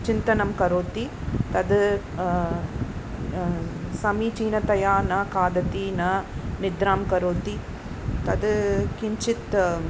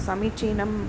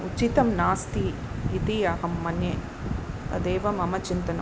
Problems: constant background noise, background conversations at intervals